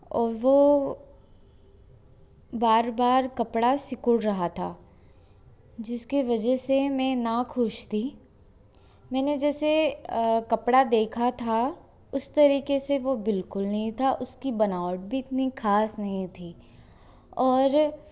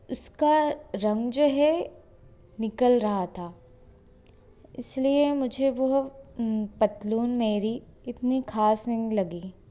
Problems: none marked